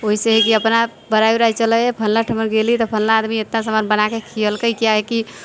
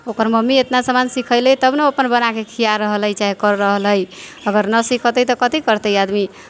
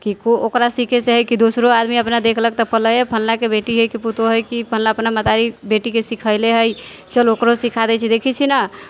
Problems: background sounds at intervals